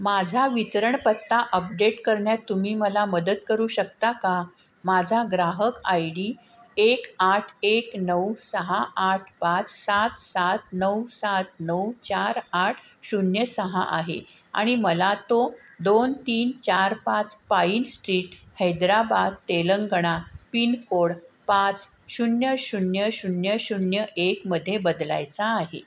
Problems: constant background noise